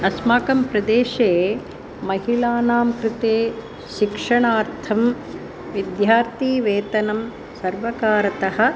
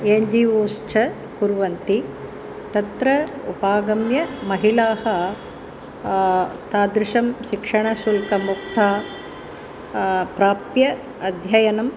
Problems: constant background noise